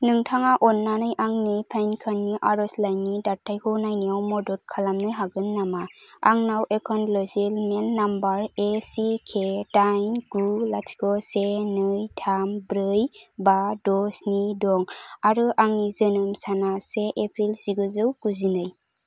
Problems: none marked